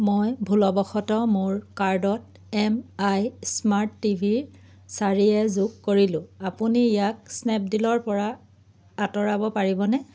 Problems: none marked